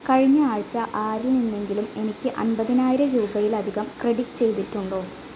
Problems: constant background noise